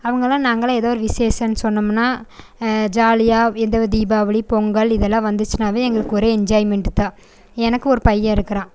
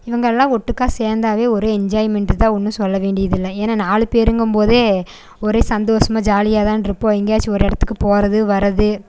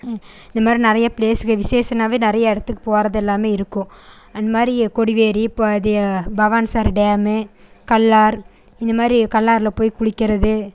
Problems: constant background noise